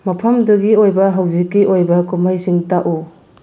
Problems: low volume